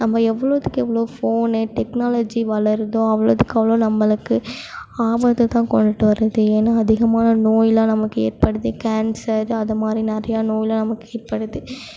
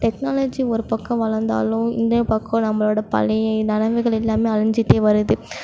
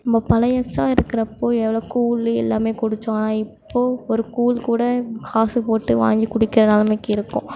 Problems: background sounds at intervals